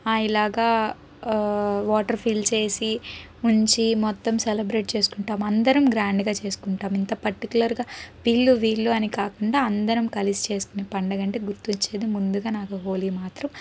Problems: background sounds at intervals